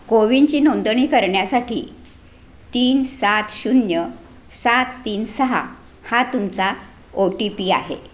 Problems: none marked